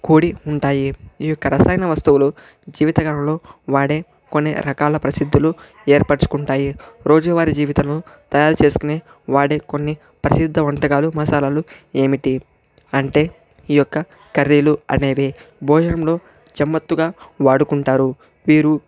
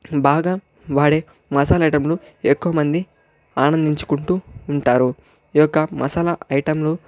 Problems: none marked